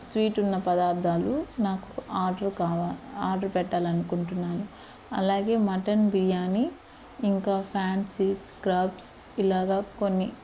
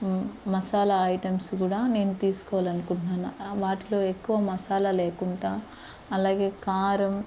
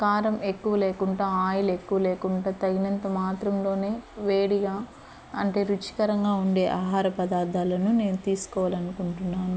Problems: constant background noise